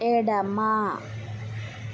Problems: constant background noise